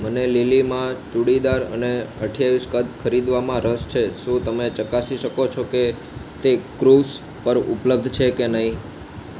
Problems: constant background noise